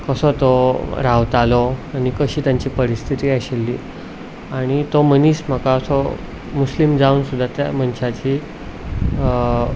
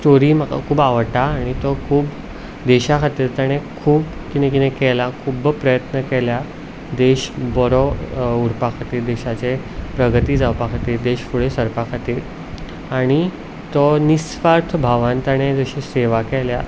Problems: background sounds at intervals